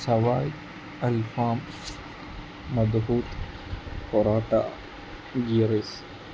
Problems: constant background noise